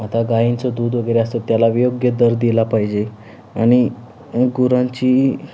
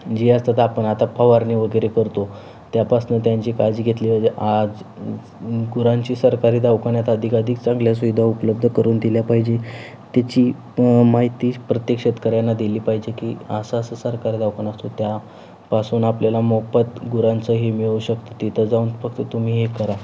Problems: constant background noise